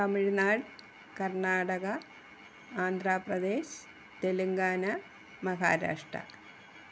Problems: constant background noise